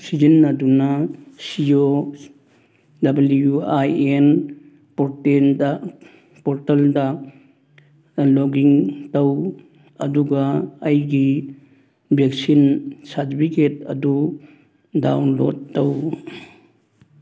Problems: none marked